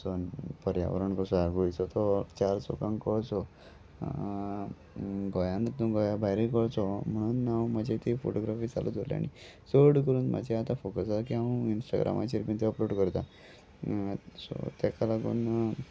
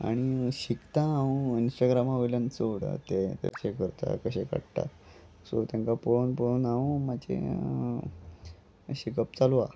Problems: none marked